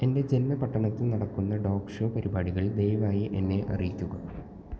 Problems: constant background noise, low volume